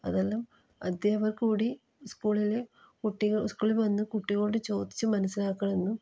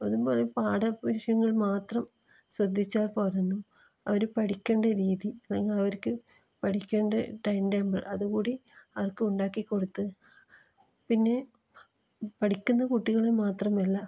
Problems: low volume